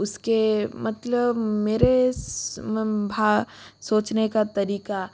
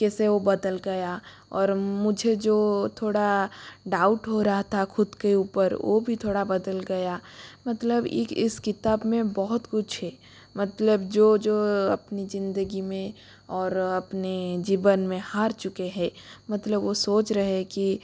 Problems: constant background noise